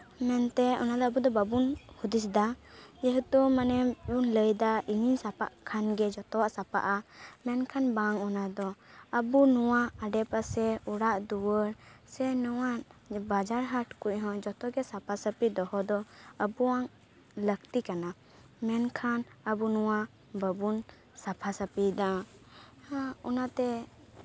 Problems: constant background noise, background conversations at intervals